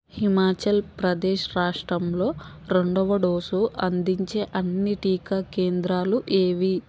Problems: constant background noise